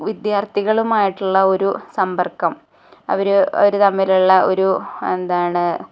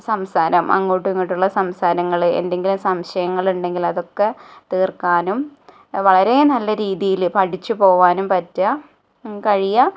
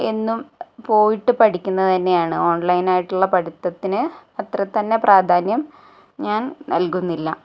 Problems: none marked